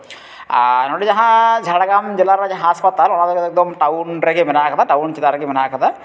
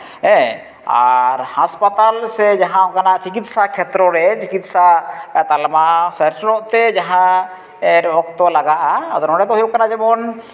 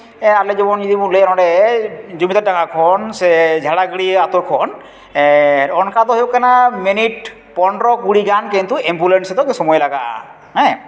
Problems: background sounds at intervals